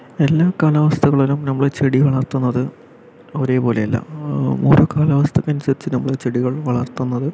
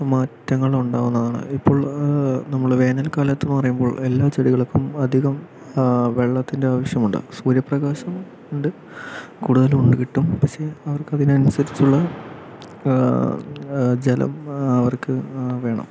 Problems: none marked